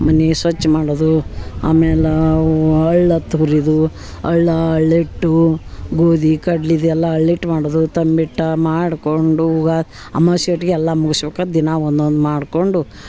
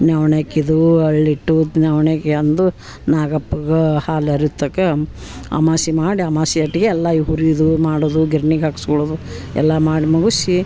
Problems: background sounds at intervals